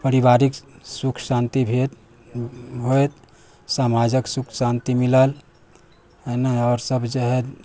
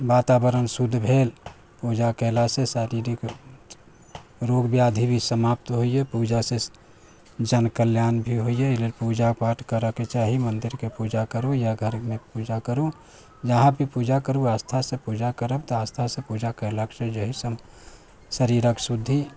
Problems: background sounds at intervals